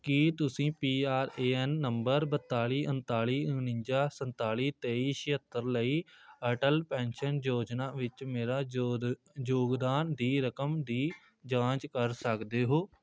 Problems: background sounds at intervals